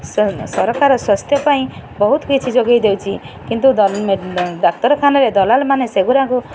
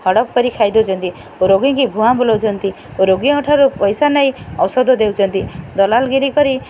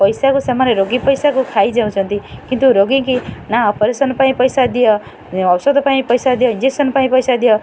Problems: constant background noise